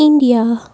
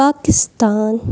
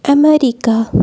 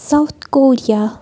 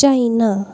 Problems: constant background noise